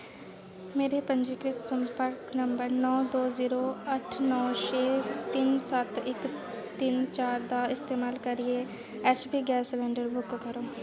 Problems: constant background noise